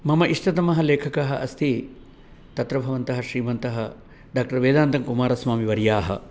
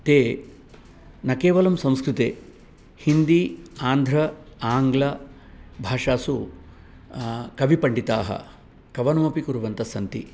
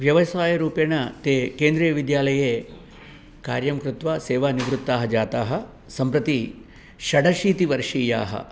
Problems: background sounds at intervals